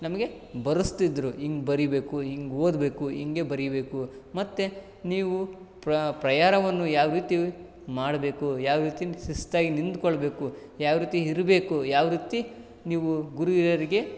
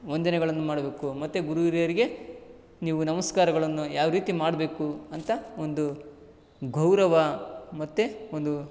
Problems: none marked